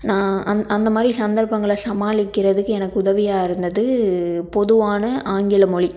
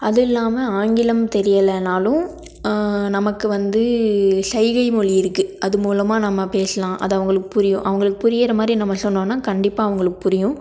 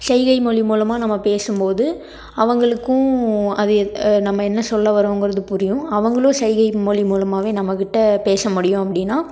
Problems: none marked